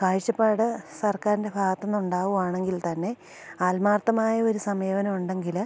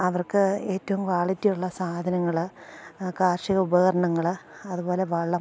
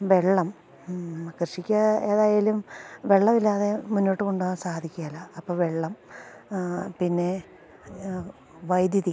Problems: none marked